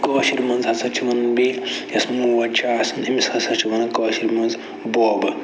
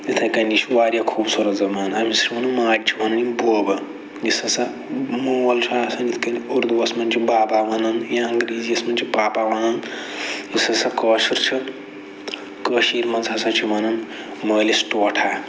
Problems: constant background noise